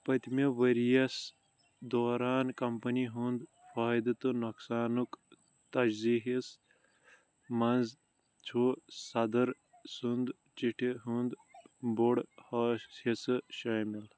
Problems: background sounds at intervals